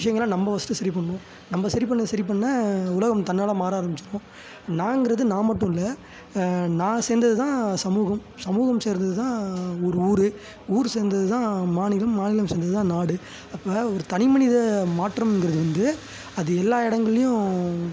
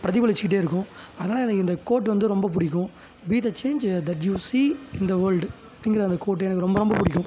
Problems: constant background noise